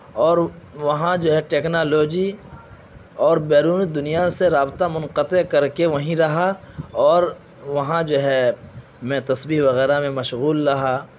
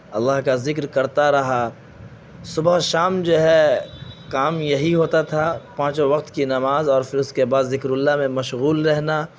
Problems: constant background noise